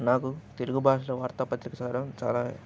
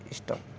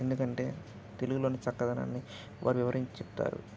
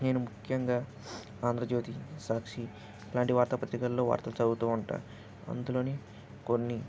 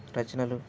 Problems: constant background noise